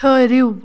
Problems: background sounds at intervals